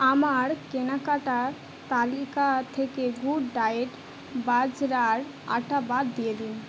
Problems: none marked